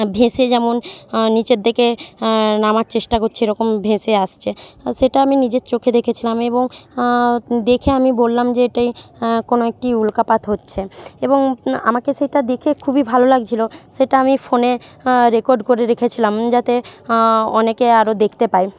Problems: continuous background conversations